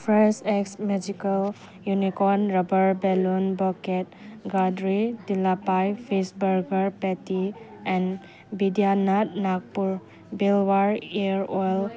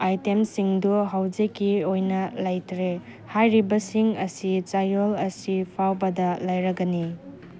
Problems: background sounds at intervals